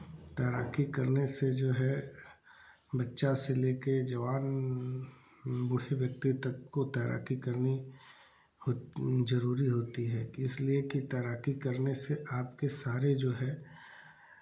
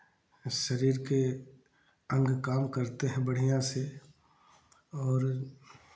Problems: constant background noise, background conversations at intervals